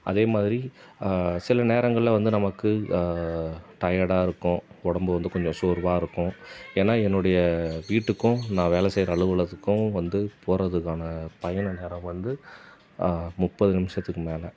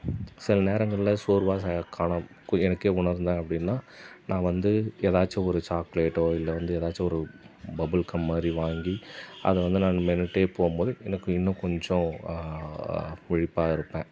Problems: constant background noise